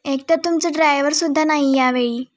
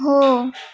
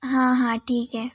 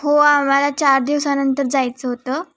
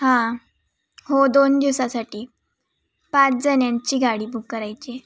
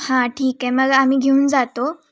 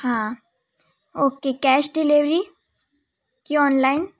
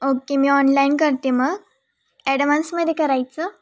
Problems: background sounds at intervals